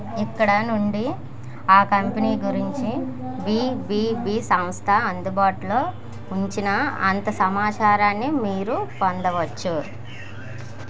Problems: none marked